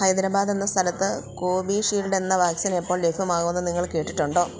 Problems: none marked